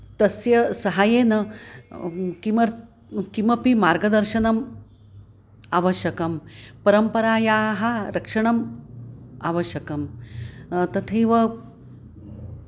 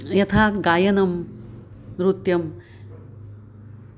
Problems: background sounds at intervals